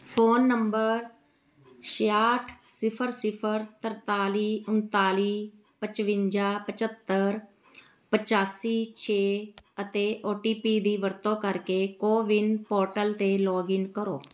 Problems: none marked